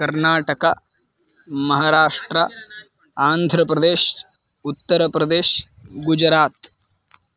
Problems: background sounds at intervals